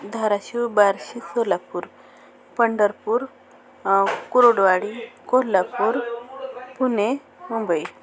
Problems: constant background noise, continuous background conversations